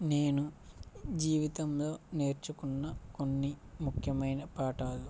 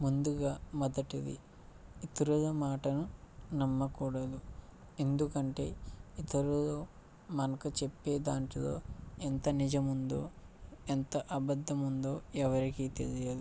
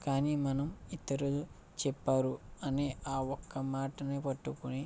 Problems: low volume